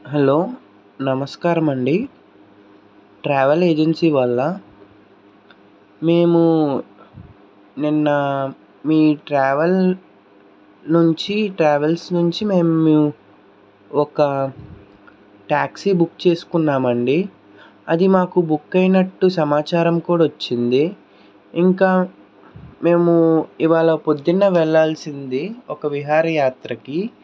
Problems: none marked